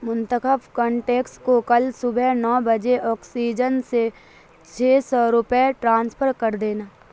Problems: constant background noise